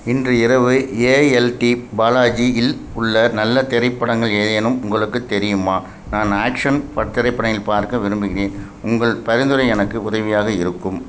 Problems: constant background noise